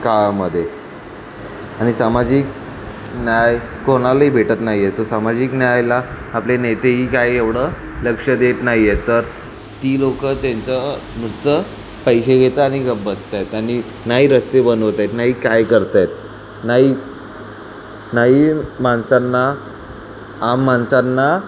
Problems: background sounds at intervals